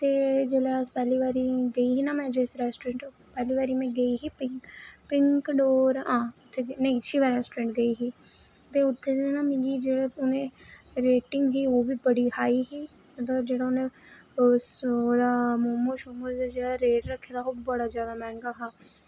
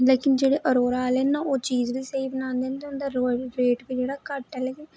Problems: none marked